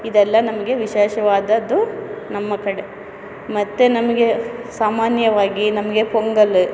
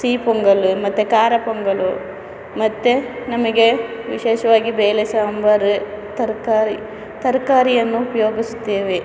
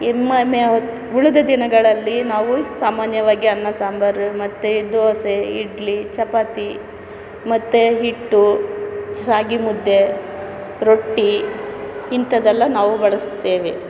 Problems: none marked